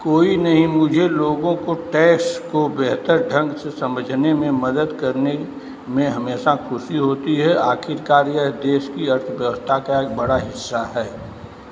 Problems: none marked